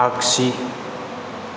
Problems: low volume